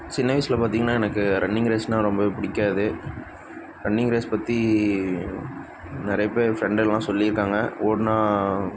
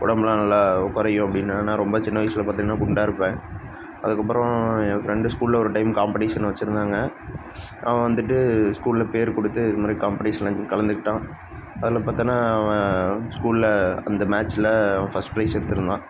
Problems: constant background noise